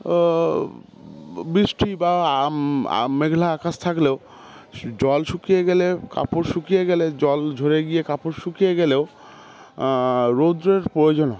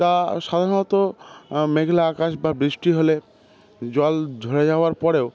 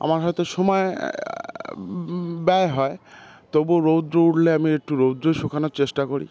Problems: constant background noise, continuous background conversations